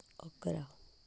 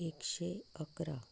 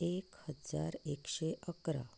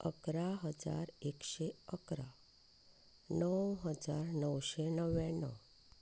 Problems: none marked